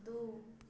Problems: low volume